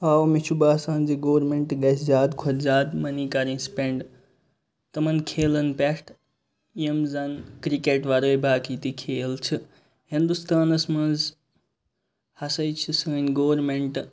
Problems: none marked